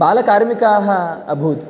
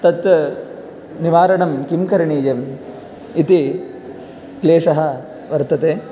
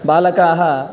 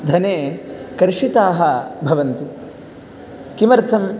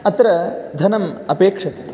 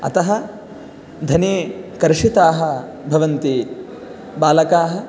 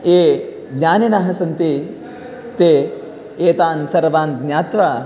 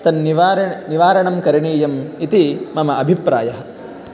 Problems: none marked